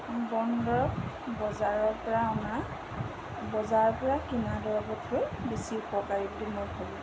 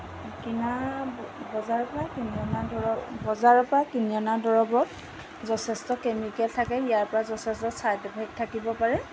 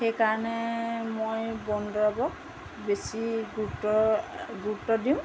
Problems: constant background noise